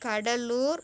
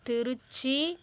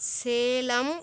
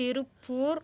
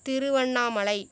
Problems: constant background noise